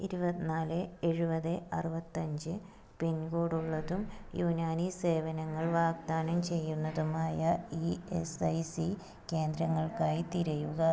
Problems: none marked